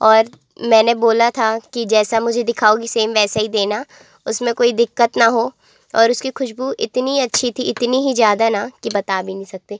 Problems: background sounds at intervals